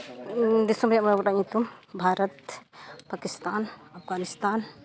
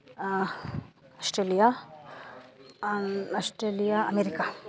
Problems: none marked